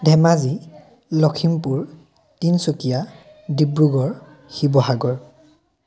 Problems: continuous background conversations